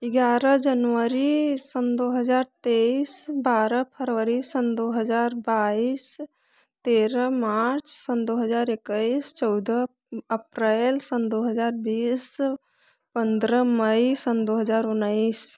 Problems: none marked